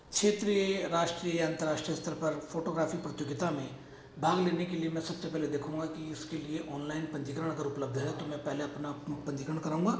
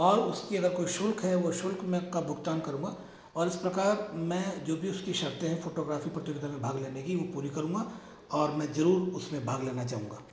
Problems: echo